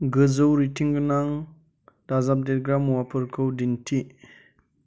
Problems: constant background noise